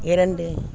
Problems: constant background noise